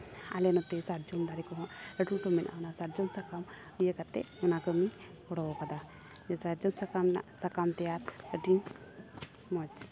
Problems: constant background noise